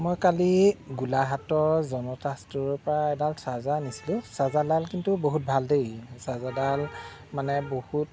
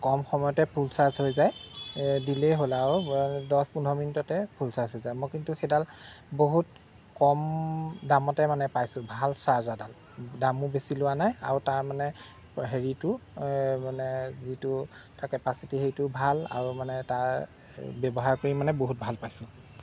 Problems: none marked